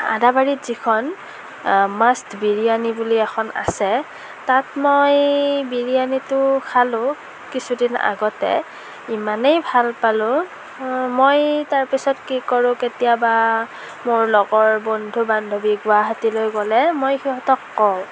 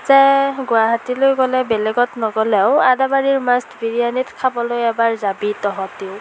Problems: constant background noise